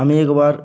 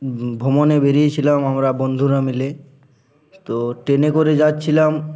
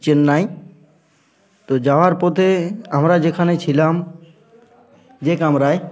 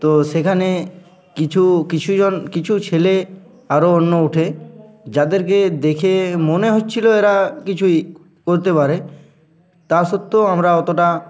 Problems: constant background noise